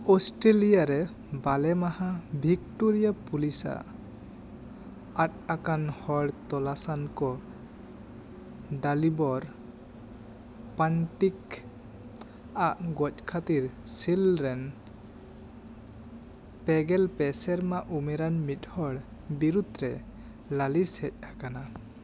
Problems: none marked